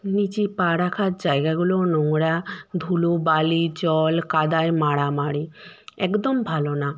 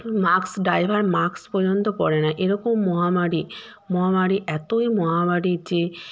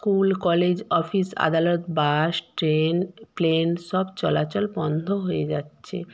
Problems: none marked